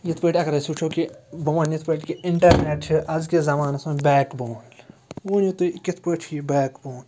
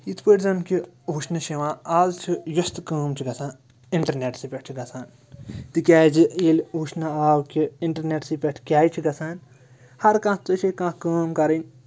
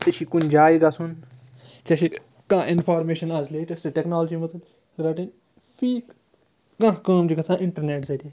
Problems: none marked